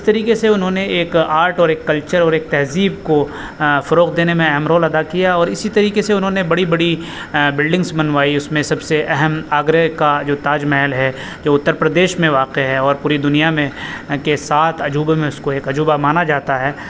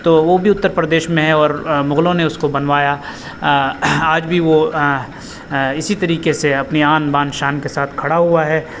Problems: constant background noise